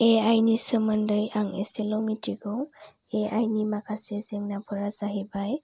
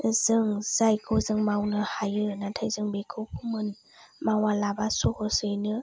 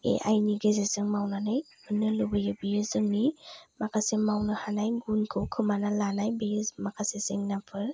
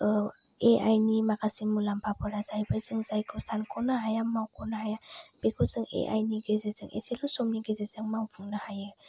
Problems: none marked